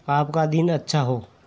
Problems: none marked